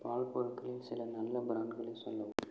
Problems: low volume